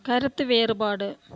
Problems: none marked